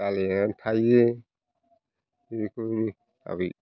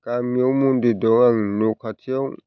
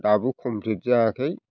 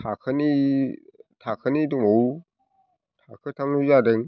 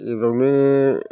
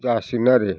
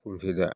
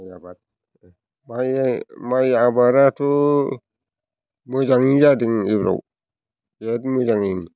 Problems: constant background noise